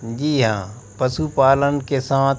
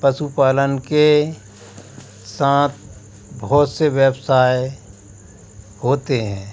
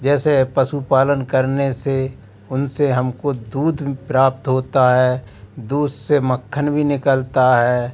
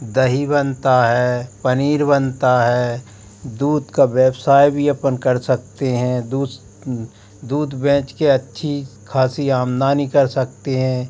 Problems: constant background noise